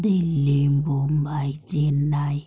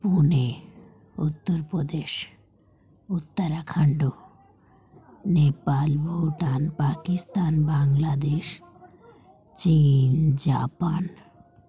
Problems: none marked